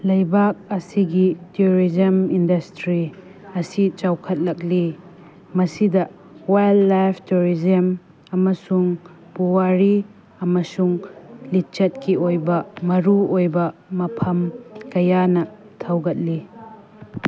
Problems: background sounds at intervals